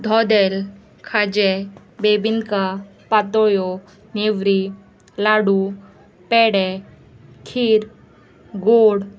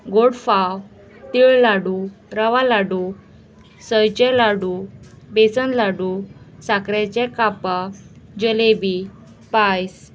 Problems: constant background noise, background conversations at intervals